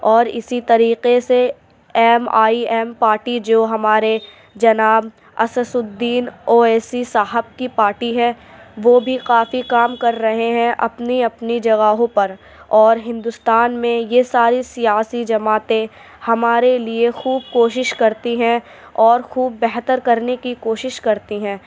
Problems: none marked